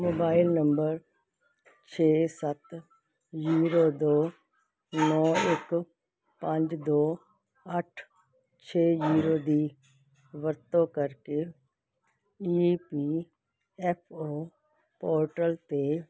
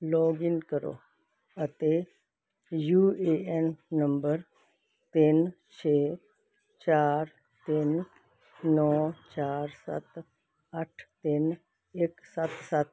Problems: constant background noise